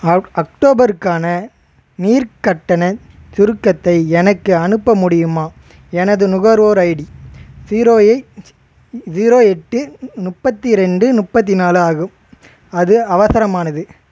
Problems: constant background noise